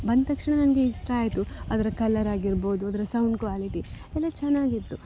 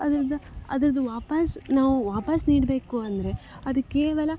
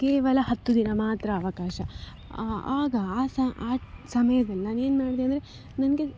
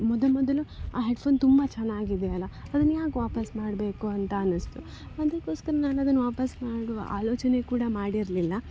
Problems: none marked